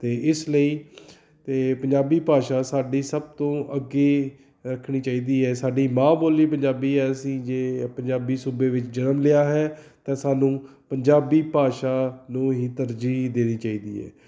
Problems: none marked